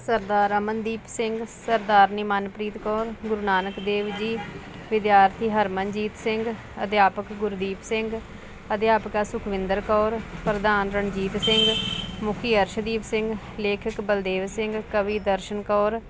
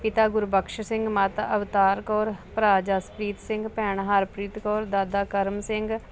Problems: constant background noise